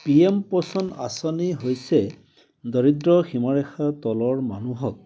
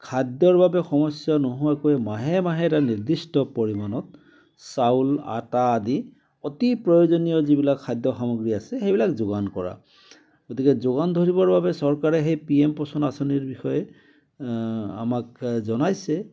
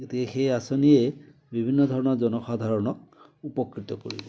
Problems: background sounds at intervals